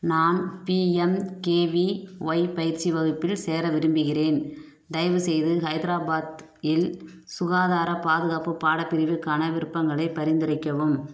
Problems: none marked